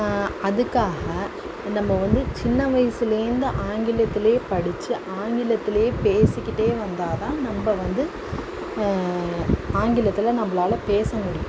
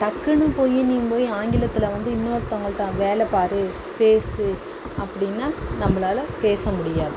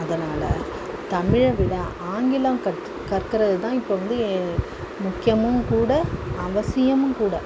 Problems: constant background noise